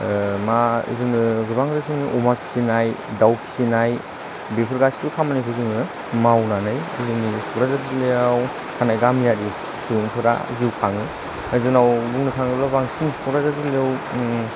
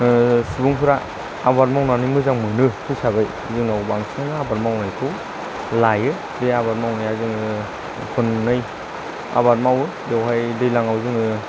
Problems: constant background noise